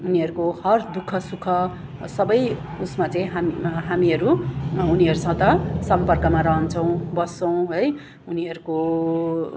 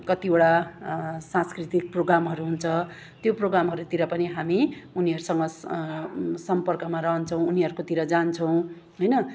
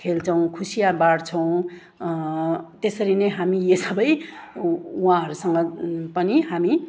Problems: none marked